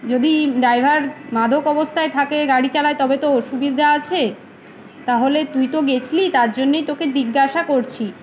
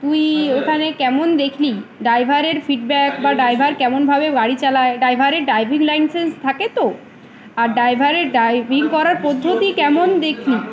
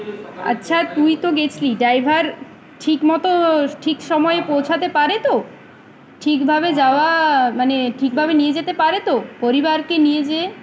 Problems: constant background noise, background conversations at intervals